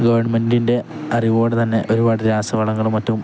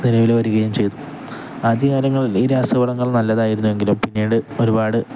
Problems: none marked